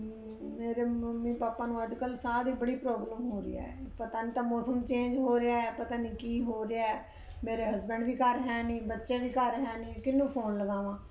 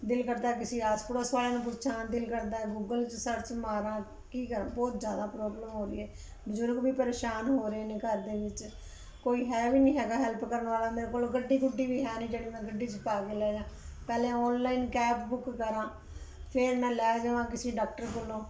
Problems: background sounds at intervals